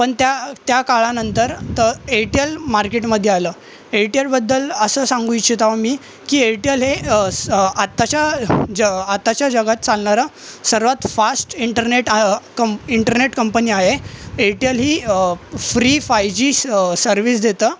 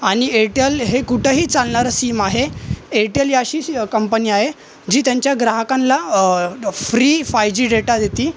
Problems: constant background noise, continuous background conversations